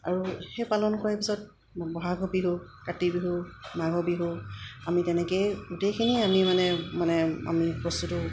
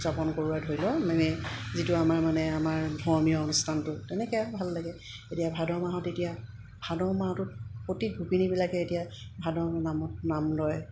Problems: none marked